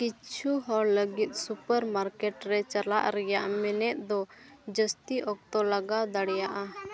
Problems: continuous background conversations